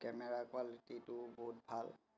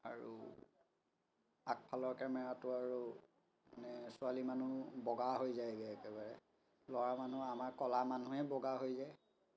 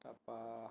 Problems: background sounds at intervals, continuous background conversations